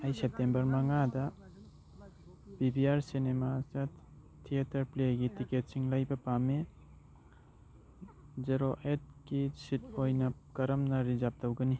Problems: background conversations at intervals